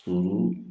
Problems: none marked